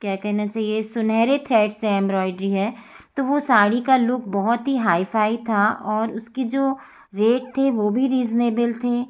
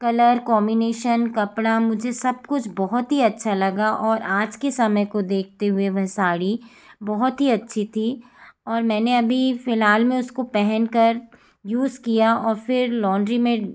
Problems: none marked